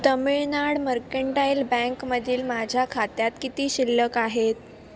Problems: constant background noise, background conversations at intervals